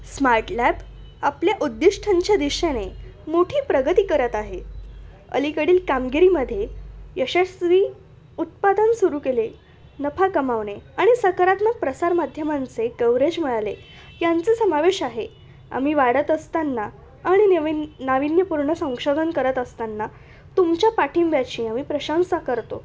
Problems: constant background noise, continuous background conversations